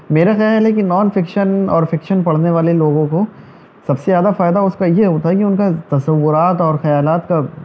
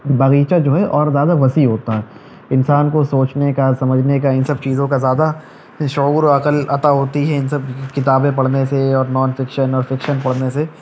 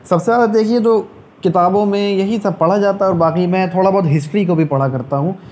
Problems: none marked